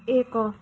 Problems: background sounds at intervals